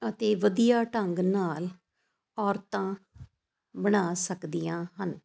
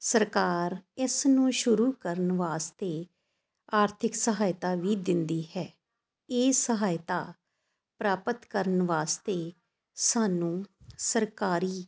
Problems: constant background noise